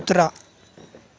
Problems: none marked